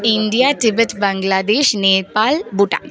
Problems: background sounds at intervals